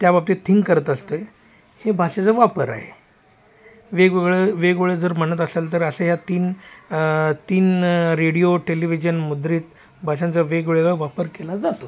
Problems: none marked